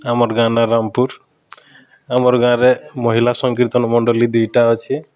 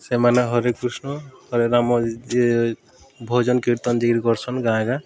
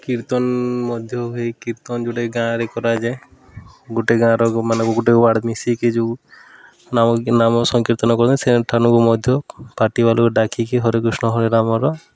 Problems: constant background noise